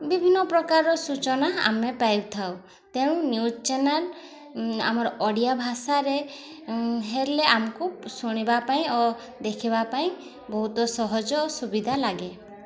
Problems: constant background noise, continuous background conversations